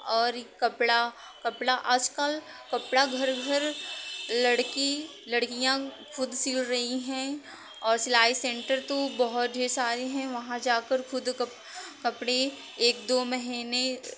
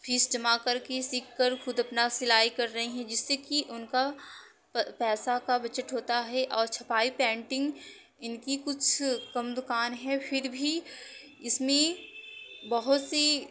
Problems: background sounds at intervals